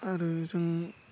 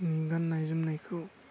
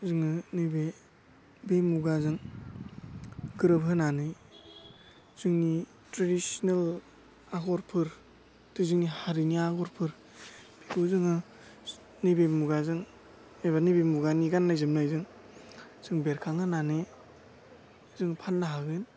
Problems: constant background noise